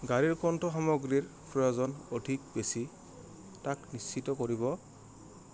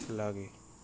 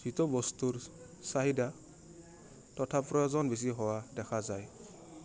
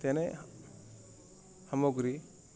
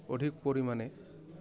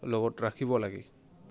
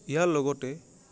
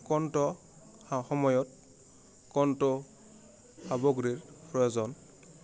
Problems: constant background noise